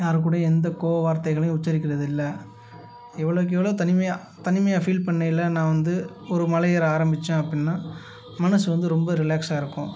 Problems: background sounds at intervals